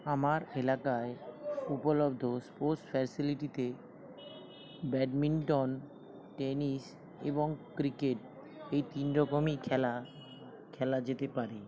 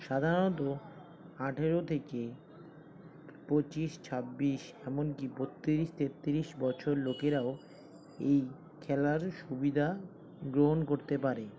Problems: constant background noise, continuous background conversations